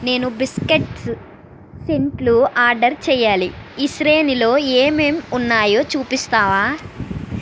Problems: constant background noise